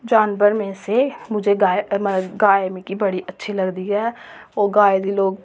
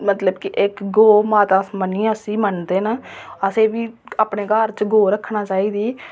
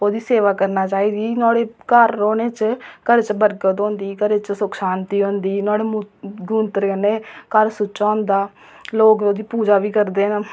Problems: none marked